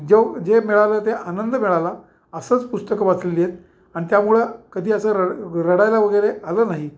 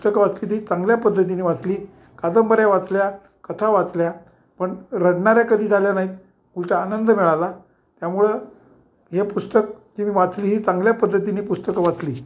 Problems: background sounds at intervals